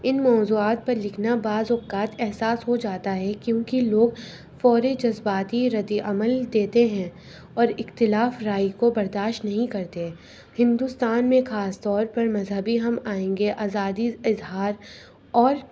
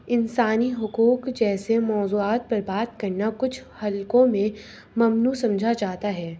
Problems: constant background noise